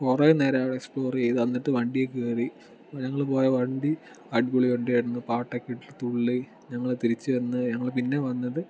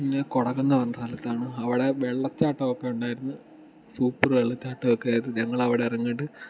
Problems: background sounds at intervals